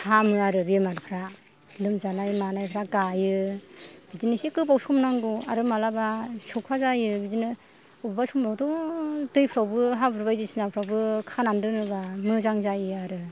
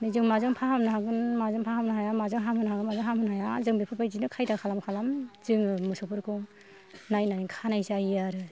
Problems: low volume